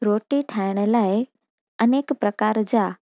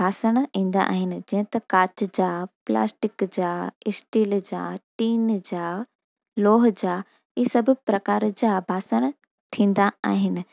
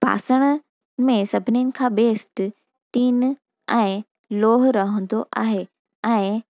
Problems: none marked